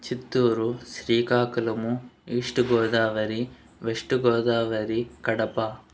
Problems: background sounds at intervals